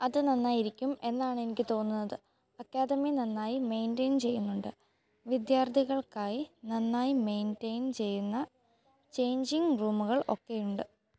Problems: none marked